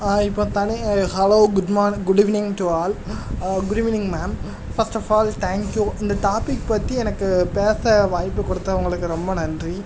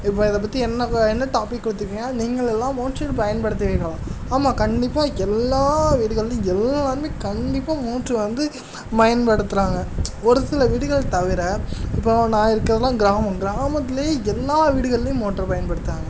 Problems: constant background noise, background conversations at intervals